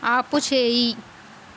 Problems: constant background noise